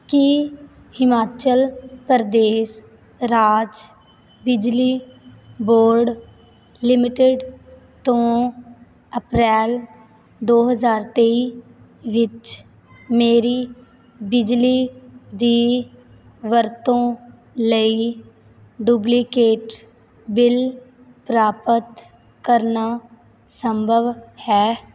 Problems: background sounds at intervals